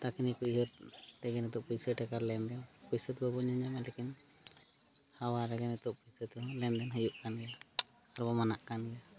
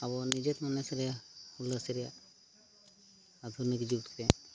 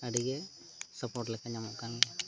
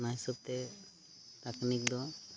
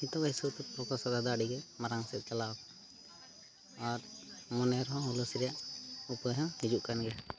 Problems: background conversations at intervals